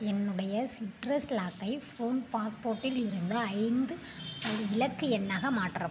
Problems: constant background noise